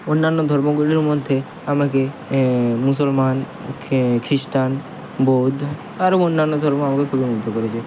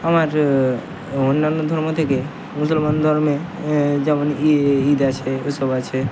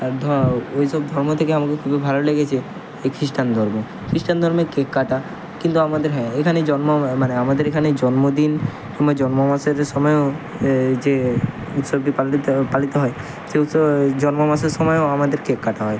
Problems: constant background noise, continuous background conversations